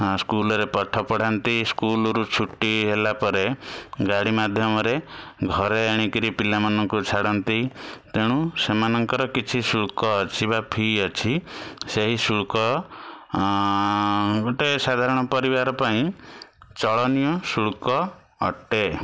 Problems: constant background noise